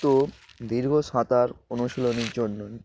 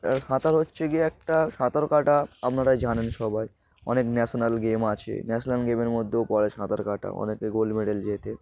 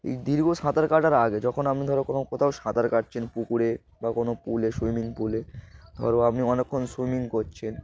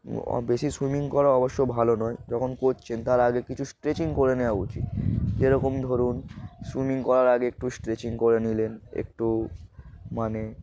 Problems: background sounds at intervals, background conversations at intervals